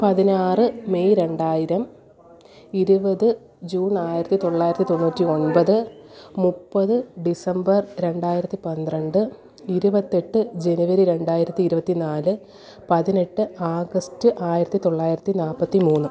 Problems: continuous background conversations